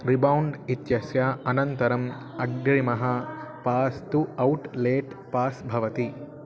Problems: background sounds at intervals